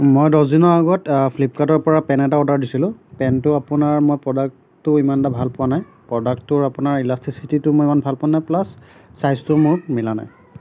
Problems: background sounds at intervals